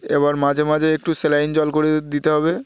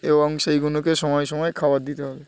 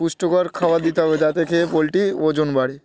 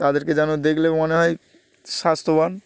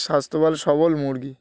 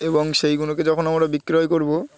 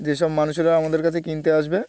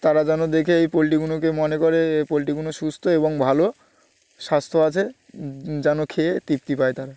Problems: none marked